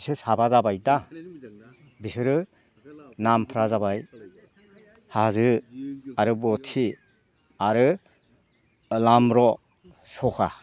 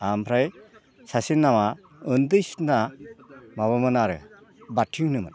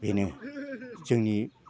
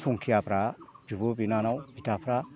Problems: background sounds at intervals